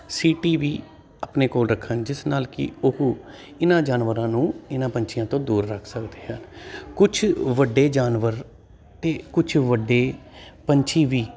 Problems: constant background noise